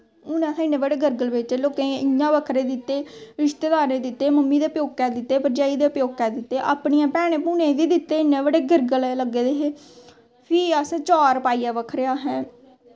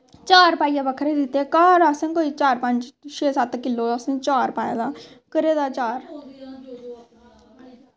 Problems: constant background noise